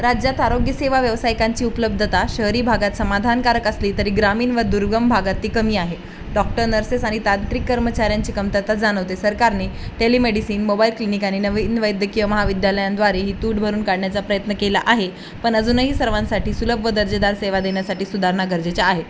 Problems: constant background noise